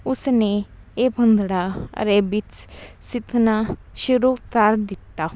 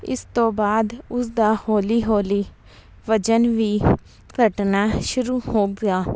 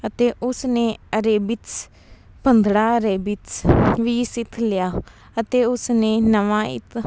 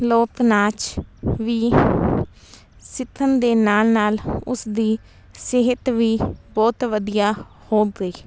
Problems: background sounds at intervals